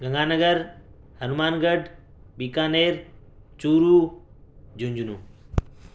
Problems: background sounds at intervals, low volume